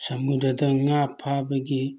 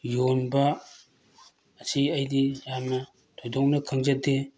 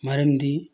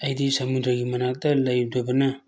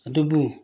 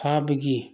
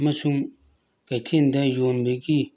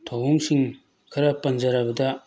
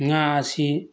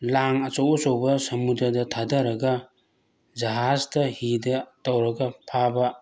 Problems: none marked